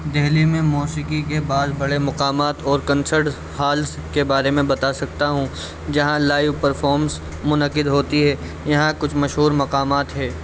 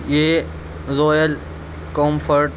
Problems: constant background noise